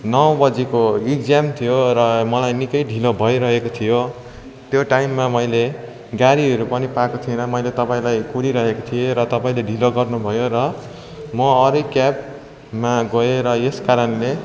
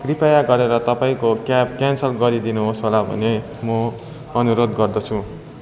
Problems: constant background noise, continuous background conversations